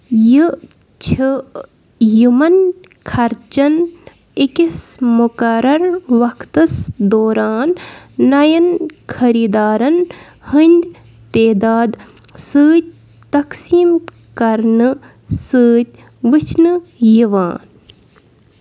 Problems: background sounds at intervals